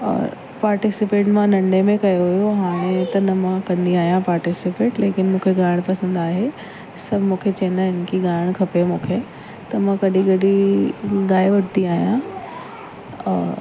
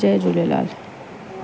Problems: constant background noise